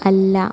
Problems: constant background noise, low volume